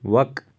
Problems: background sounds at intervals